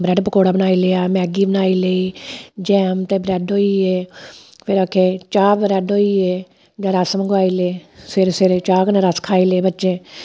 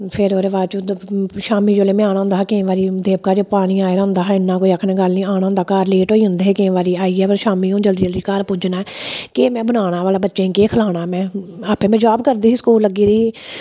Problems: none marked